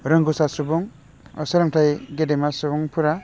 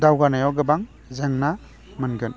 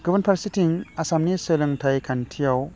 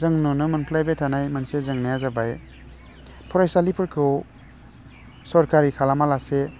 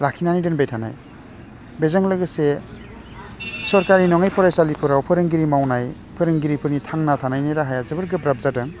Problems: constant background noise